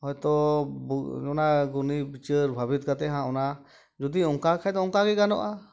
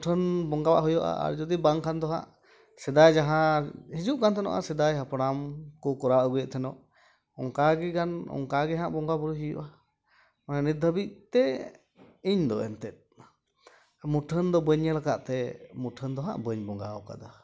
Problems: background sounds at intervals